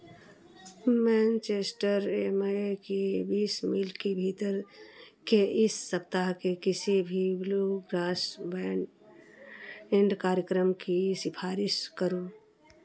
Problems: background sounds at intervals